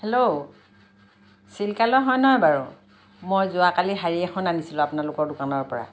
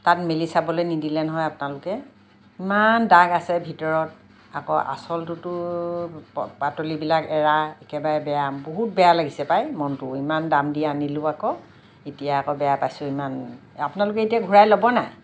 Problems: none marked